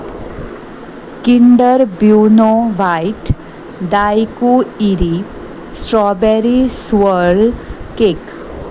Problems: none marked